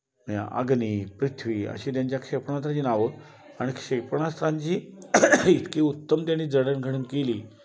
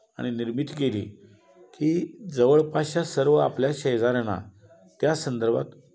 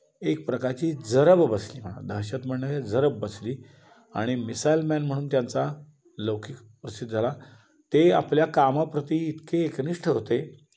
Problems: constant background noise